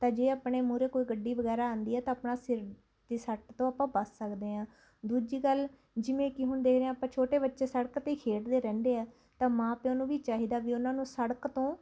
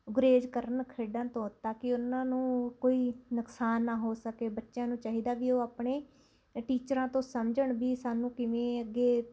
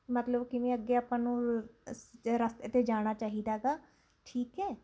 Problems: constant background noise